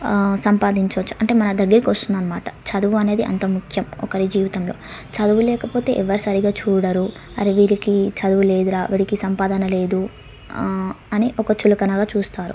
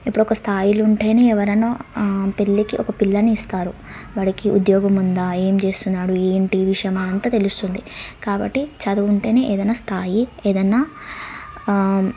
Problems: background sounds at intervals, background conversations at intervals